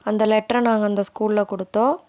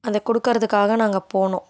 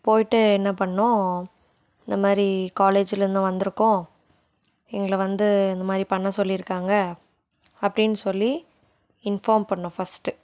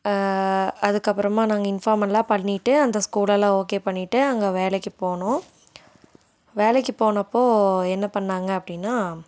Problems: none marked